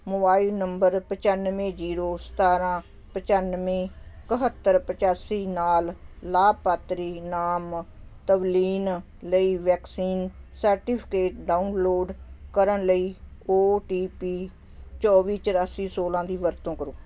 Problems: constant background noise